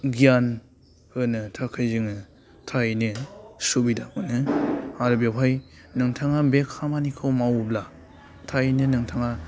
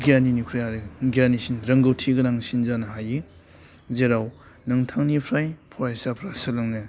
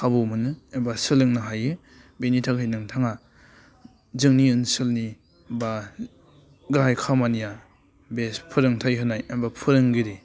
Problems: low volume